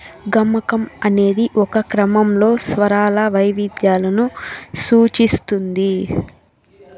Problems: continuous background conversations